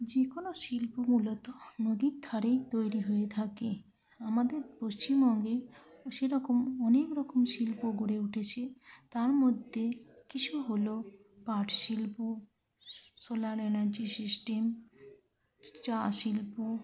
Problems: constant background noise, continuous background conversations, low volume